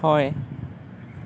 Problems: none marked